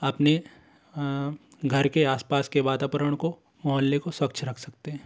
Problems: constant background noise